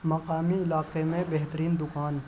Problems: constant background noise, low volume